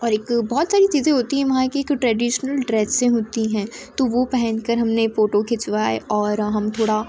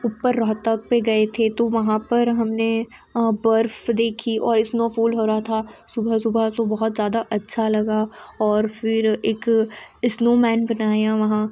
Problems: constant background noise